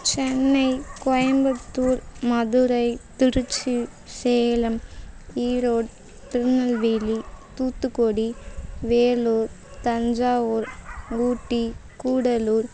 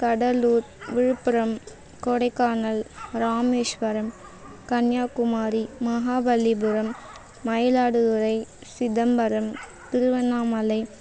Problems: constant background noise